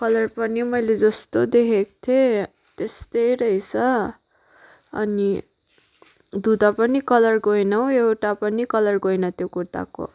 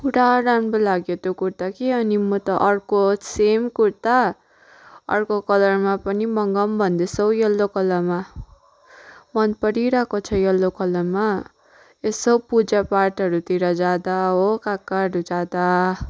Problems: background sounds at intervals, background conversations at intervals